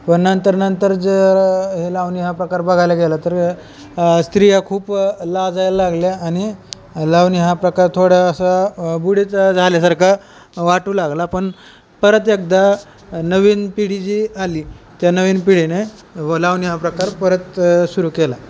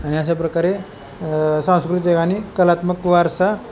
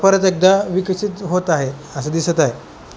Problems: none marked